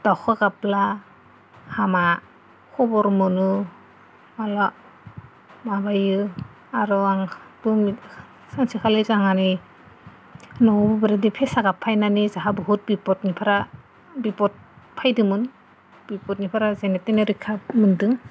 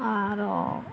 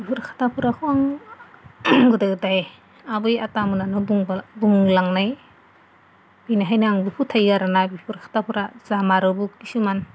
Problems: none marked